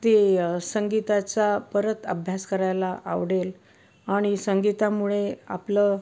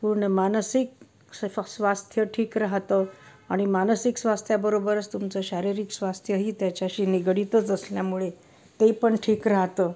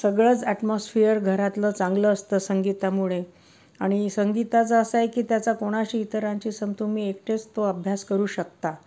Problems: background sounds at intervals